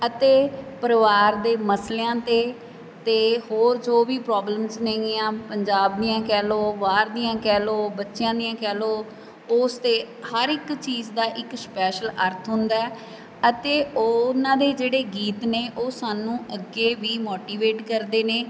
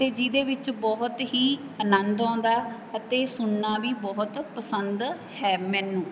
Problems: background sounds at intervals